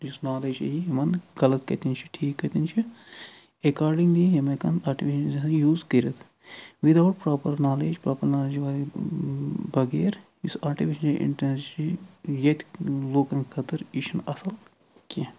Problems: none marked